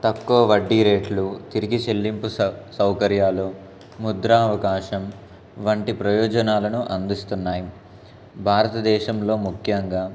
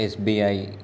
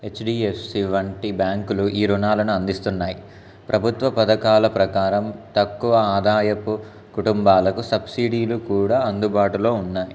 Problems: constant background noise, background conversations at intervals